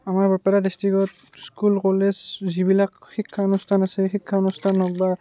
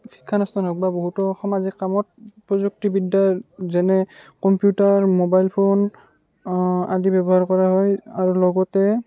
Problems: background sounds at intervals, background conversations at intervals